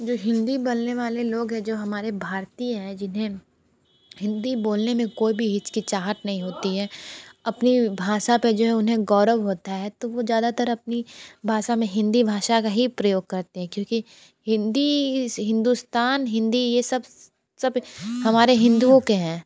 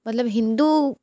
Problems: none marked